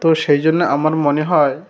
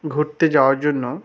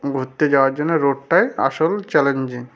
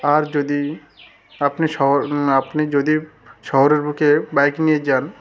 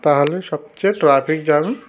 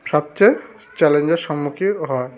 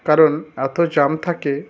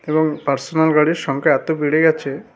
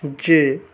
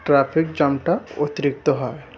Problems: constant background noise, continuous background conversations